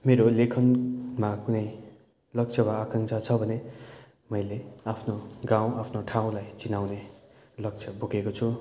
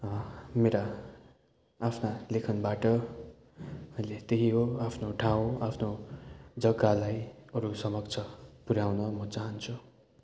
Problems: none marked